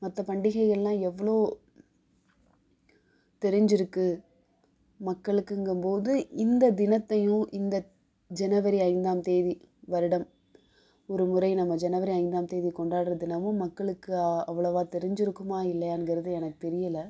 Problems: background sounds at intervals